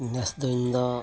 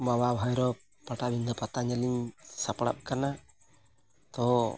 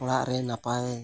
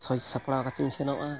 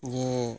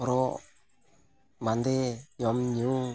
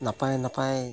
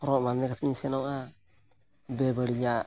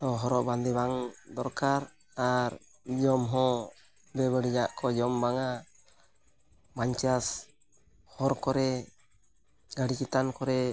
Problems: background sounds at intervals